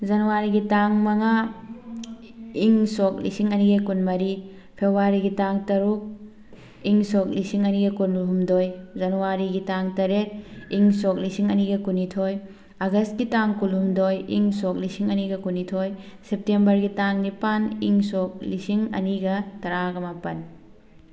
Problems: constant background noise, background conversations at intervals